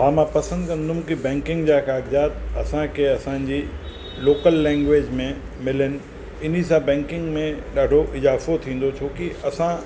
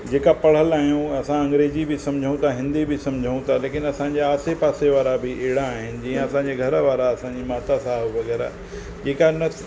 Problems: constant background noise, echo